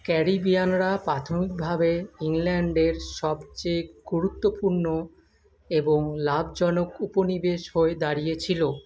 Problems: none marked